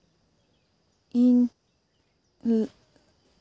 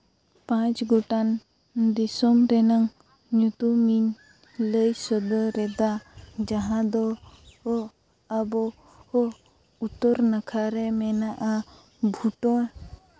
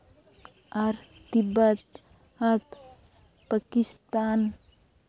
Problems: background sounds at intervals